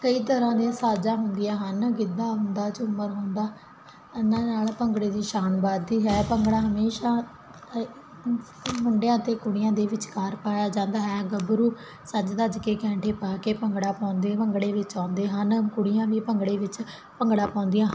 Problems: none marked